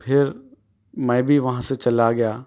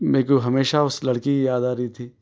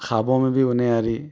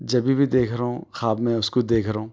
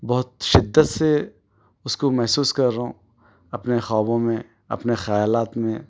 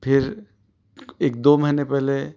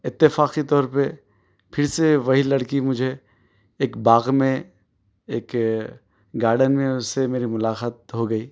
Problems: none marked